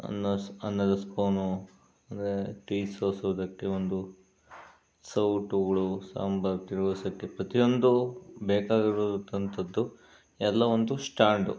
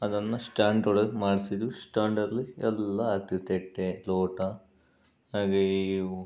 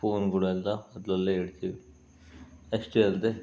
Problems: none marked